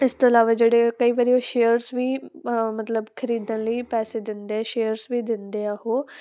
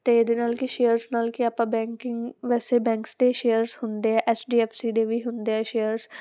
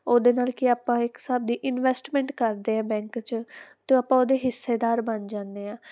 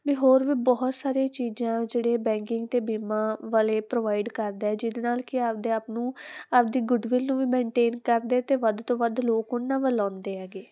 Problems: constant background noise